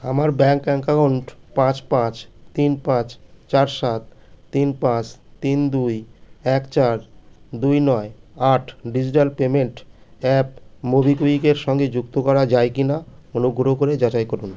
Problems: none marked